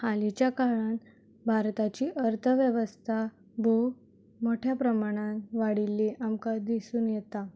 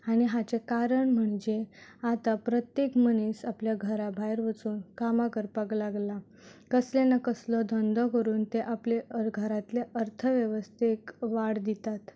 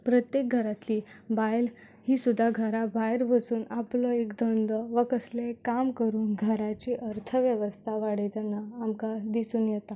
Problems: none marked